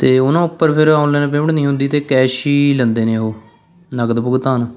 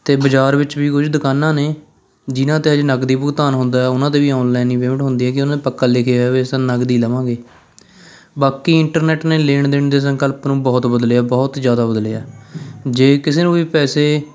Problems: none marked